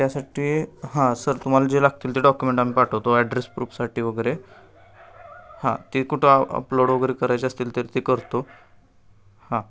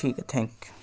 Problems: none marked